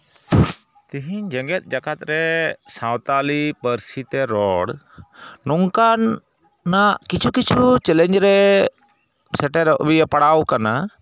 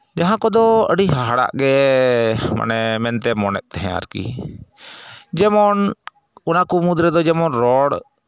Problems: background sounds at intervals